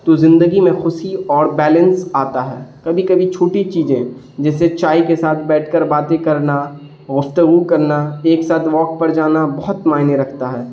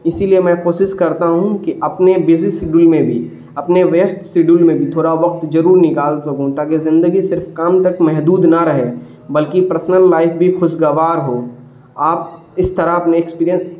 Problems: constant background noise